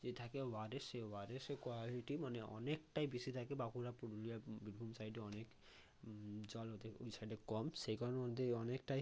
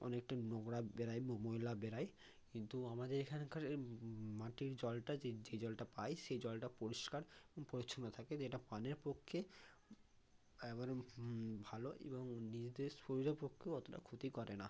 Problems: constant background noise